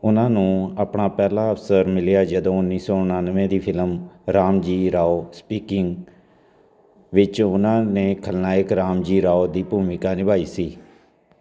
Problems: constant background noise